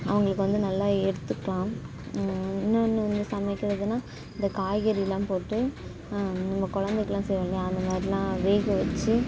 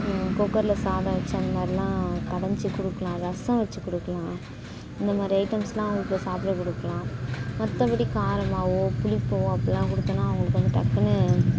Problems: background sounds at intervals